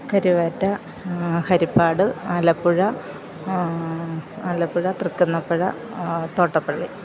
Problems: background sounds at intervals, background conversations at intervals